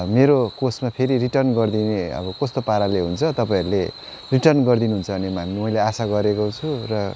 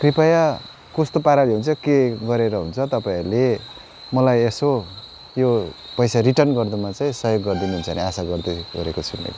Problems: constant background noise